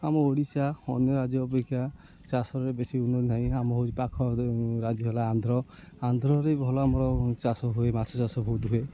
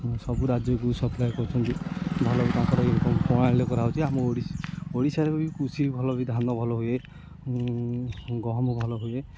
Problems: constant background noise